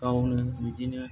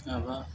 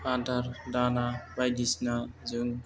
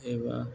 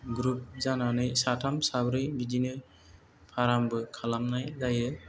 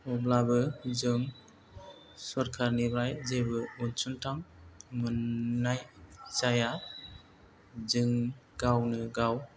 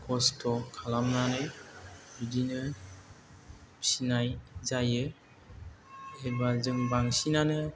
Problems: low volume